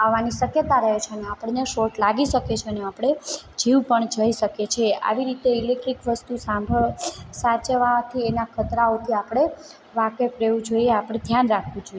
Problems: constant background noise